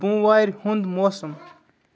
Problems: continuous background conversations